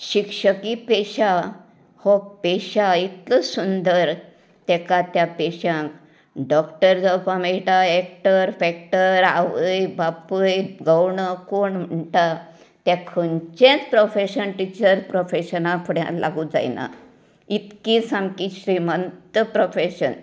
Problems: none marked